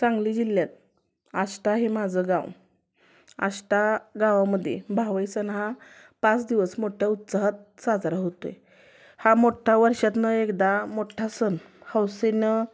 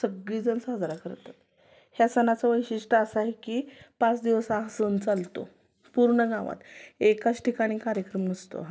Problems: constant background noise, continuous background conversations